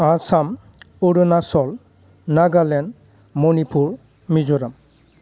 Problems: low volume